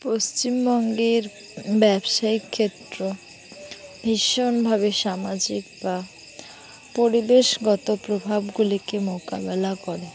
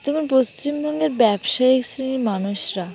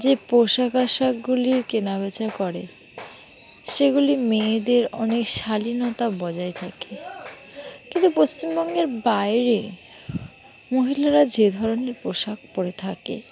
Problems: background sounds at intervals, background conversations at intervals